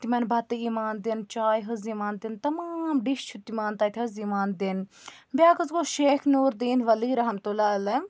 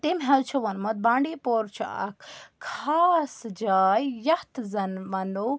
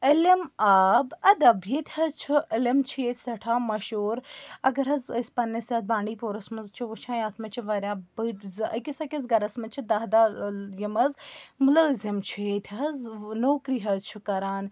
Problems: none marked